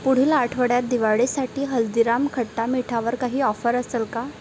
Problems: none marked